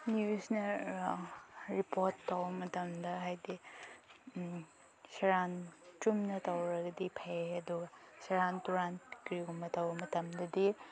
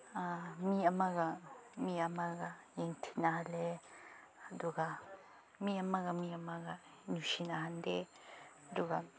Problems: background sounds at intervals